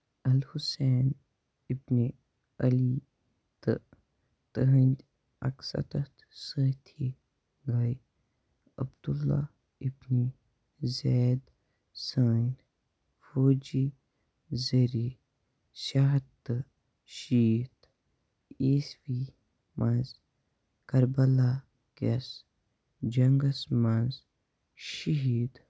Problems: low volume